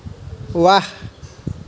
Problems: none marked